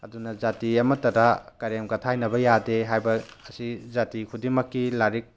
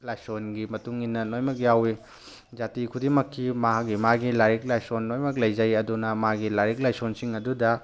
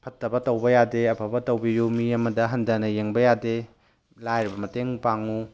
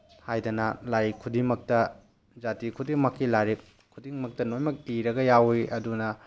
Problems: background sounds at intervals